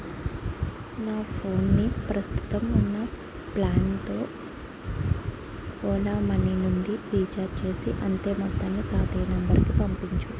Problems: constant background noise